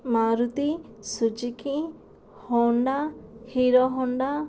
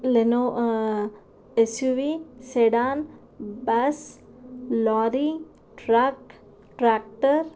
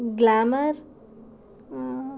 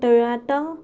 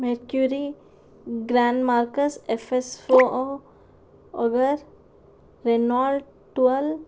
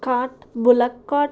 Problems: none marked